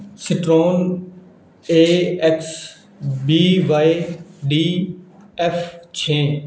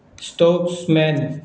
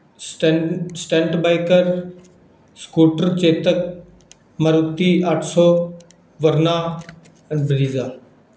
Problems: none marked